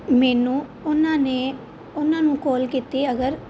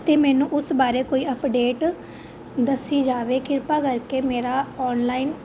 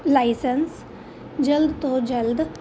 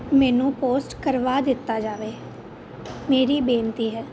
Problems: constant background noise